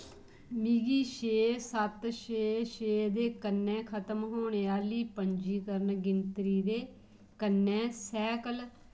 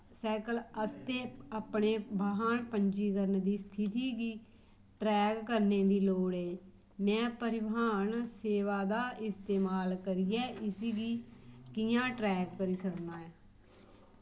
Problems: none marked